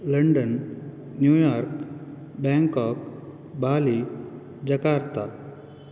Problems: none marked